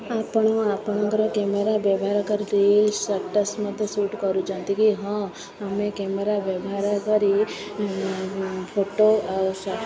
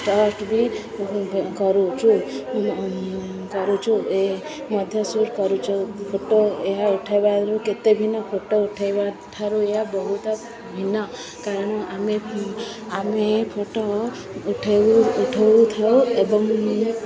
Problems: continuous background conversations